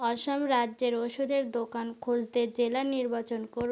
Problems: constant background noise